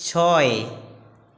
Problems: constant background noise